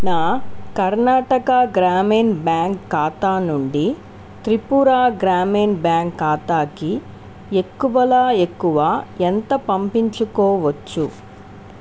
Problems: constant background noise